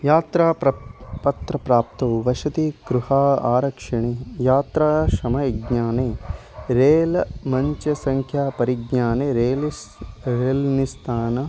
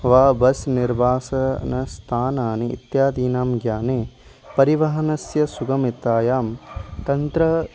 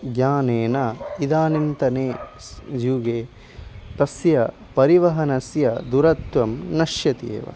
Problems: constant background noise